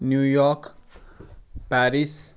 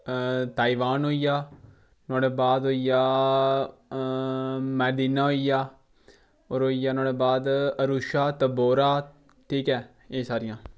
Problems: background sounds at intervals